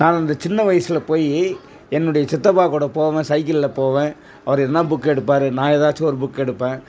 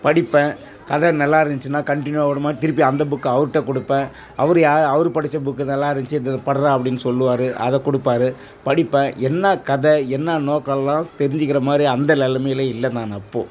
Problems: background sounds at intervals